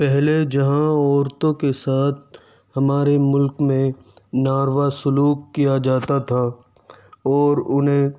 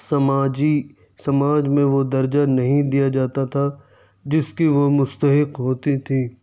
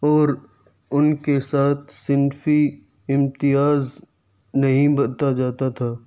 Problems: none marked